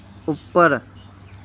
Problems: none marked